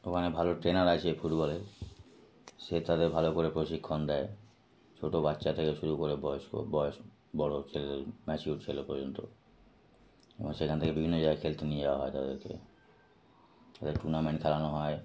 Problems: none marked